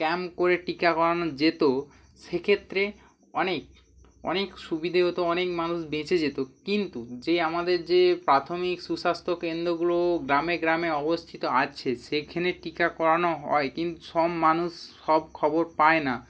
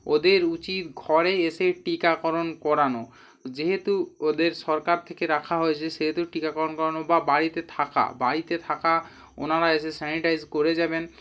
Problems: constant background noise